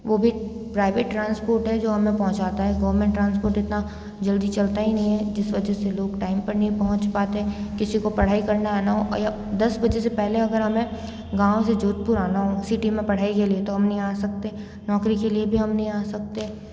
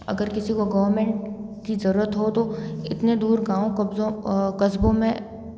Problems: constant background noise, background conversations at intervals